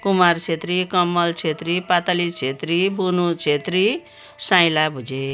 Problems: background sounds at intervals